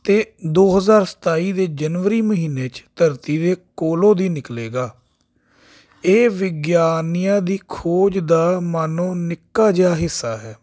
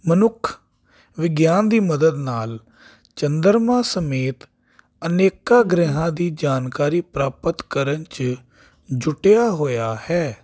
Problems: none marked